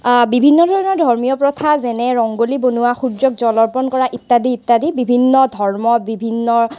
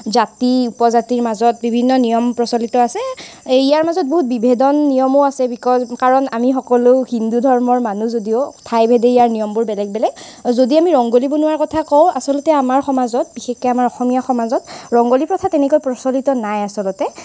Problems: constant background noise